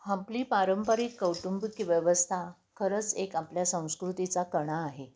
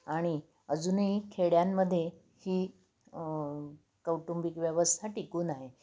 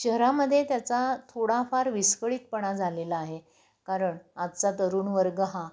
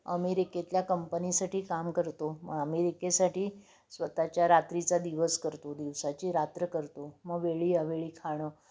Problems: constant background noise